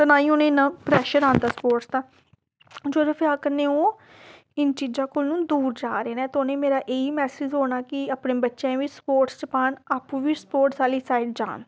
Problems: background sounds at intervals